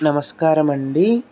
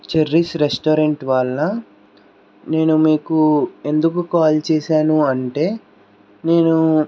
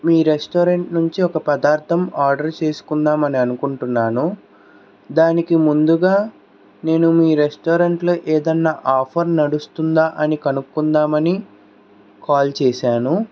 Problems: none marked